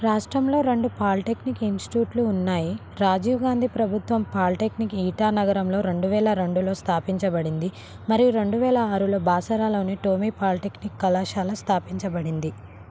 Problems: none marked